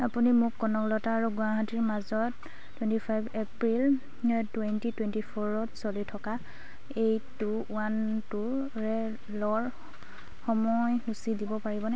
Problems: none marked